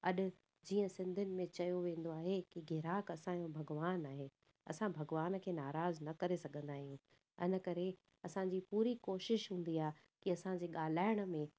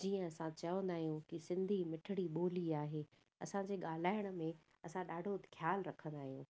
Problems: none marked